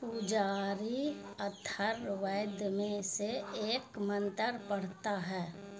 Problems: constant background noise